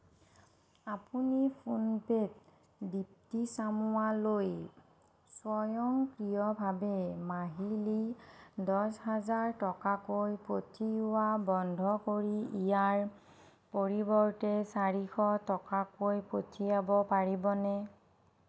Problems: none marked